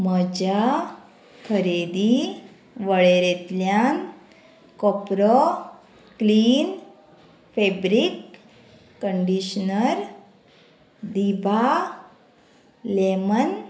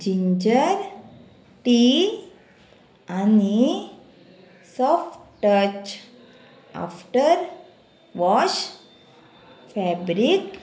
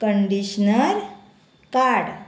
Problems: none marked